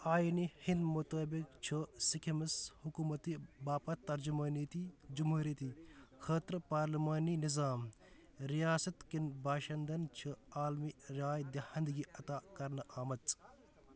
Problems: background sounds at intervals